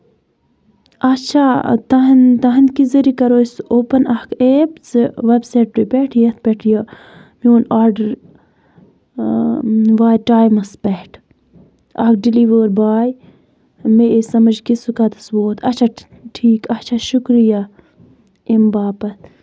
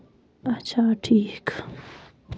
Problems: none marked